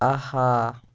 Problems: none marked